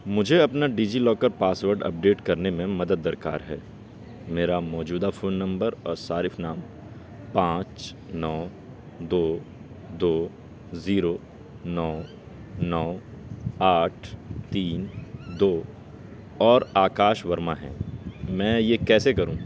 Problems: background sounds at intervals